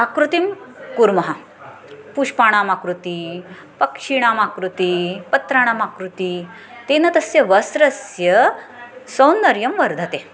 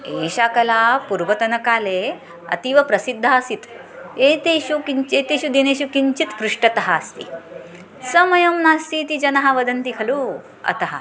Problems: background sounds at intervals